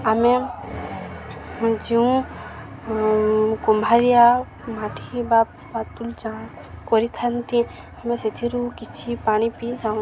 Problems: constant background noise, continuous background conversations